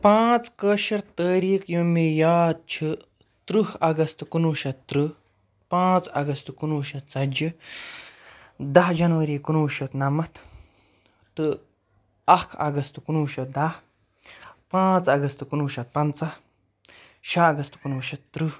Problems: none marked